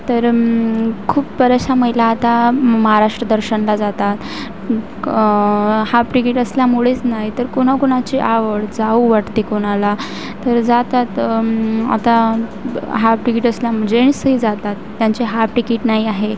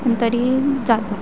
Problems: constant background noise